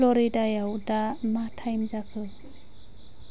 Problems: constant background noise